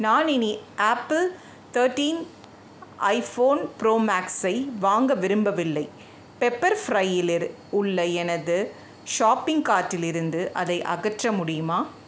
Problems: background sounds at intervals